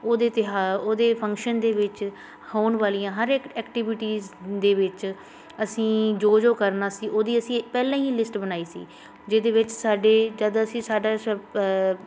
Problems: constant background noise